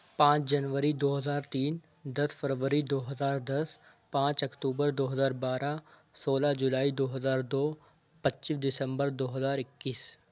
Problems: none marked